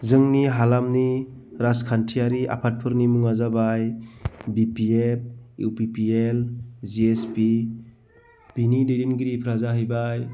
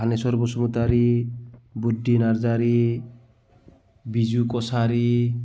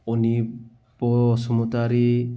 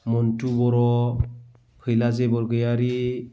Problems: none marked